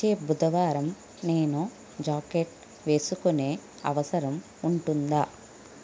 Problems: constant background noise, low volume